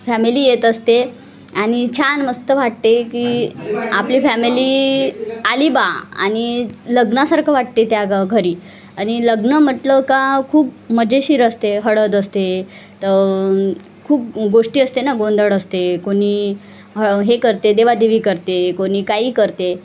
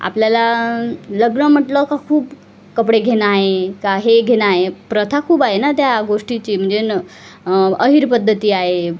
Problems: constant background noise, continuous background conversations